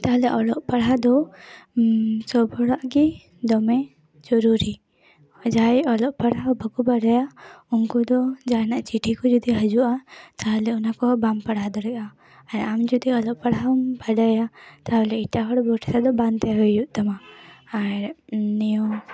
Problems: background conversations at intervals